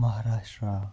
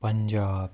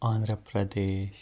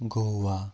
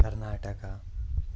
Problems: none marked